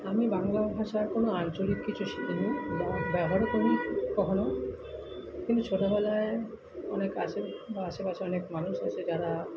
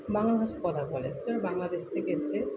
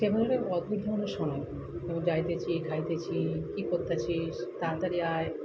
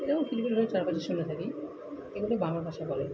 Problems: constant background noise, continuous background conversations